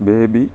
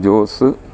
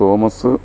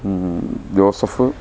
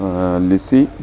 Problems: none marked